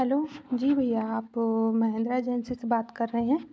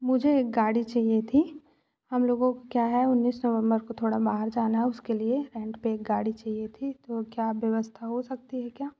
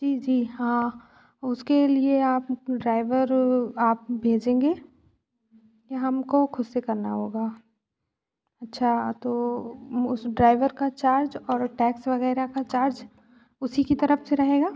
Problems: constant background noise, background conversations at intervals